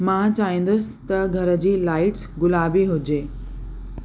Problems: constant background noise, echo